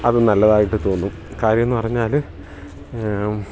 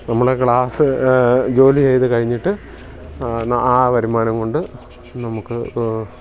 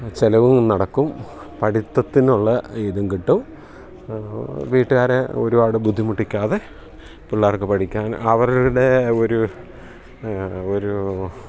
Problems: background sounds at intervals